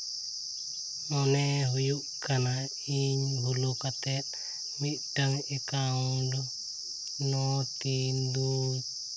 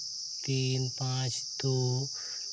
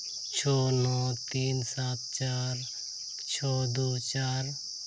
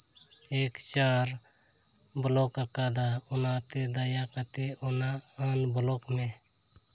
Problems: constant background noise